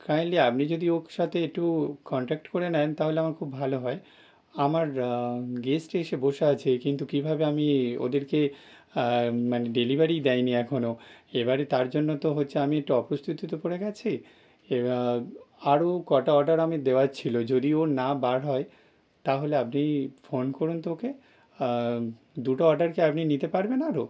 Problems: none marked